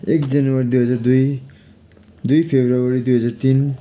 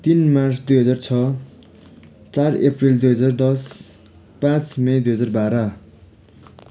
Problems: constant background noise